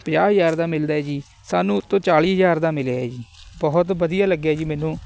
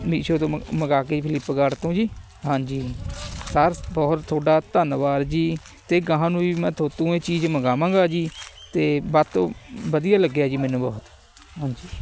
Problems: constant background noise, background conversations at intervals